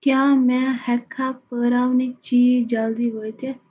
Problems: constant background noise, echo